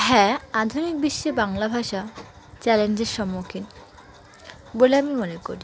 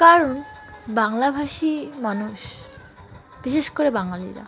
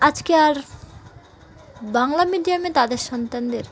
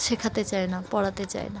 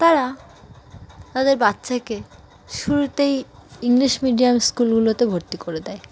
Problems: constant background noise, continuous background conversations